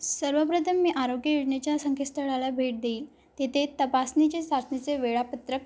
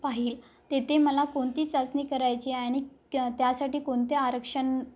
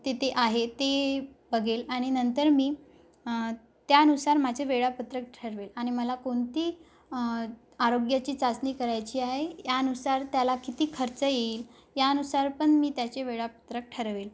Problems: background sounds at intervals